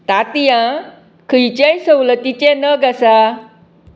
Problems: constant background noise